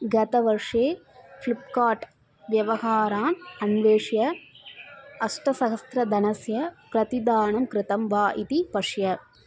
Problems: background sounds at intervals